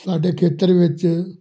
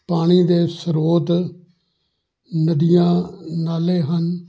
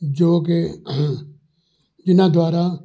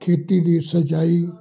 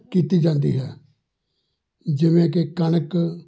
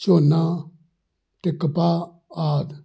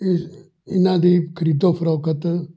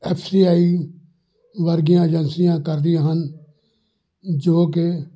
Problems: background sounds at intervals, background conversations at intervals